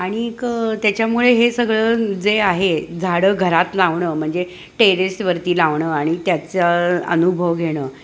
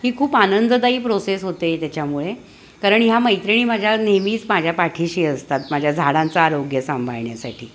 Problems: constant background noise, background conversations at intervals